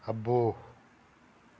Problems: constant background noise